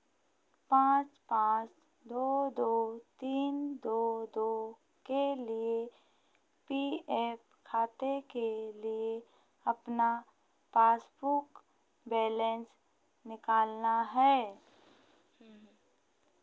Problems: constant background noise